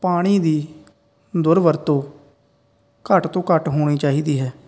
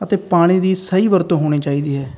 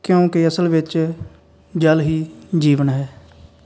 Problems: none marked